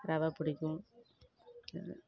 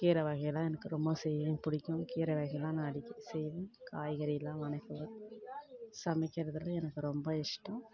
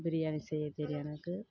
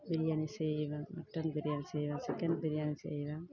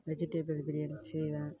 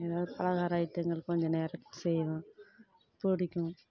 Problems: background conversations at intervals